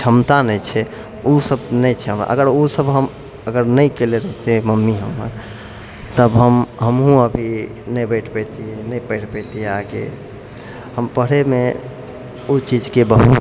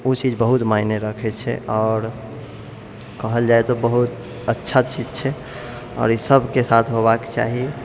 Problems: none marked